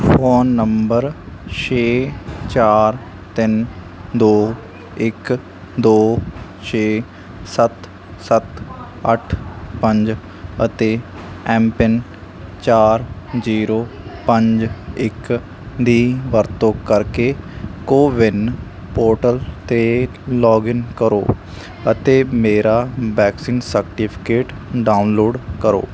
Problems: constant background noise